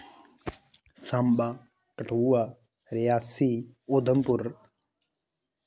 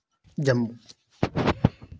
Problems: none marked